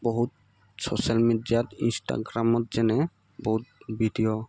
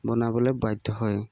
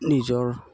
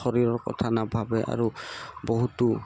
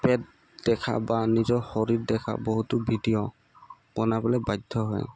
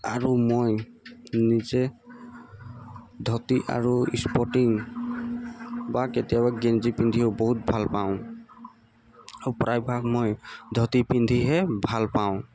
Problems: constant background noise, background conversations at intervals